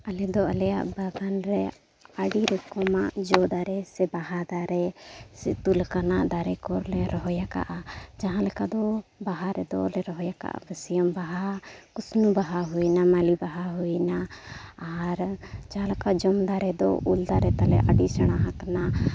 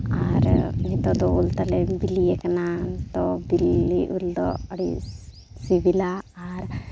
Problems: background sounds at intervals